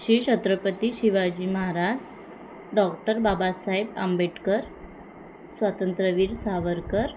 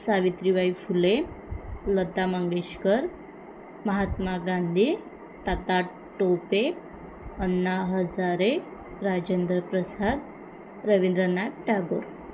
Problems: constant background noise